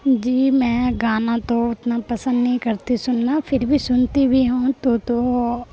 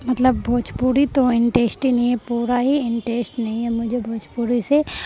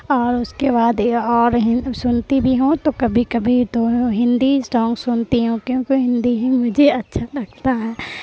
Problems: constant background noise